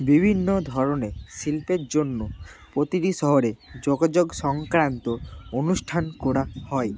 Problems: none marked